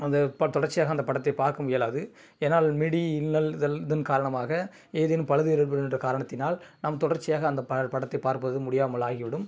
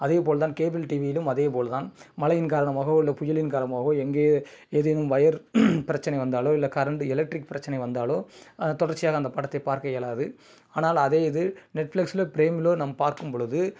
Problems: none marked